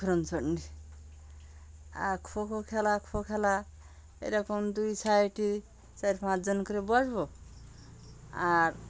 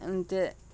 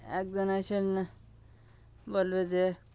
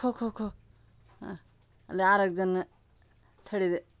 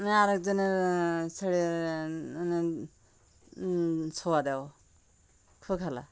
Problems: constant background noise